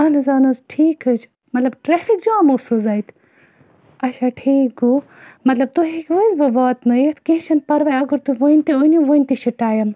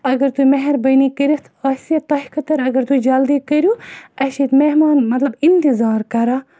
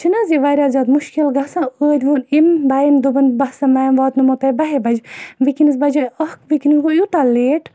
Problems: none marked